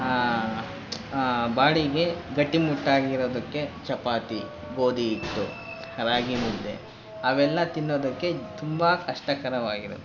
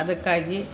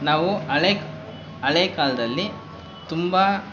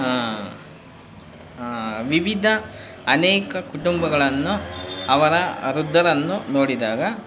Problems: constant background noise